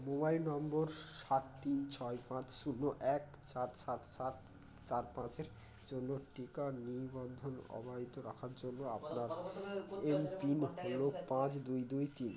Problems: constant background noise, continuous background conversations